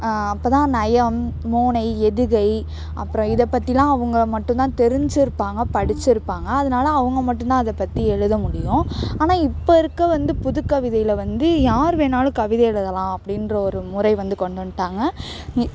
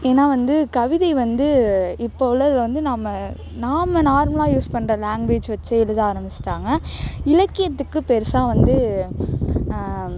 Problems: constant background noise